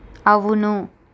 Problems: none marked